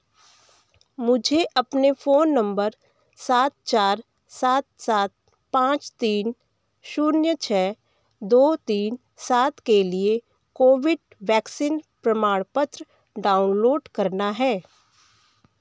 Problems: background sounds at intervals, background conversations at intervals